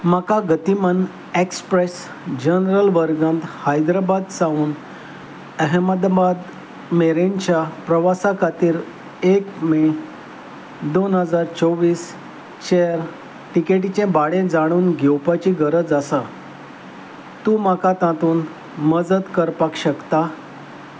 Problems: constant background noise